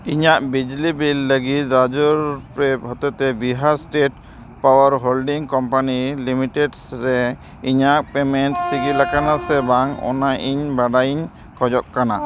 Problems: background sounds at intervals